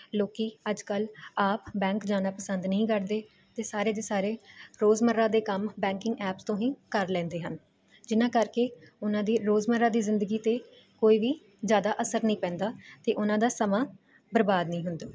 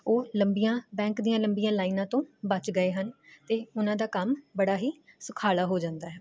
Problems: constant background noise